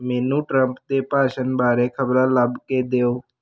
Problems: constant background noise